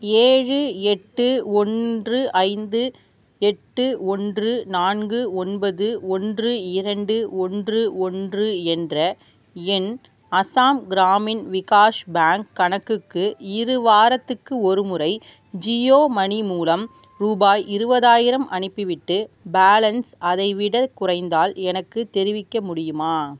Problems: none marked